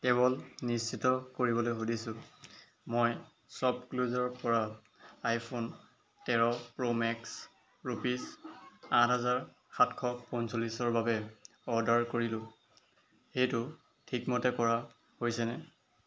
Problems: none marked